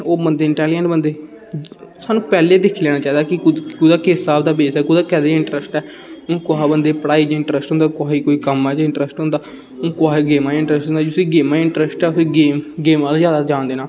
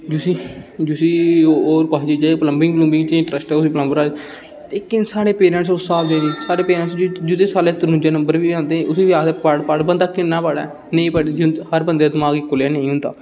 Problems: constant background noise